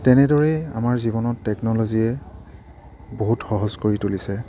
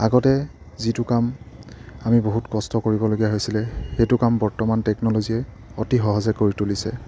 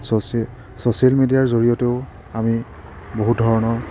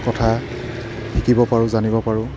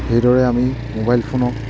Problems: background sounds at intervals